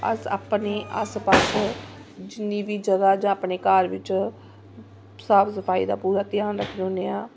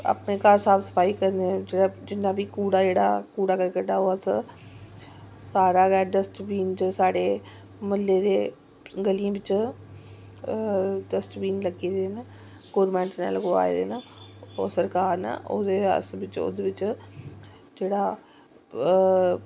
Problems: background sounds at intervals